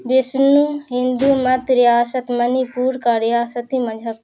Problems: constant background noise